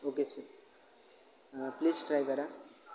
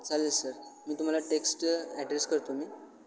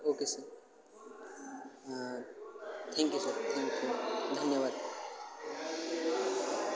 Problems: constant background noise, continuous background conversations